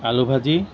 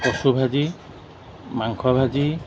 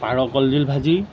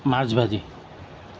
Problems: background sounds at intervals